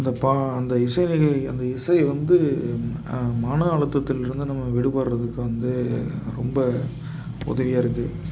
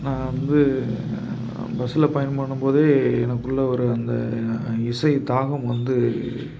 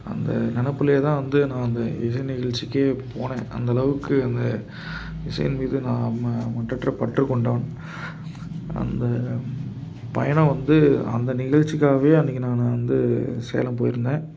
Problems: background sounds at intervals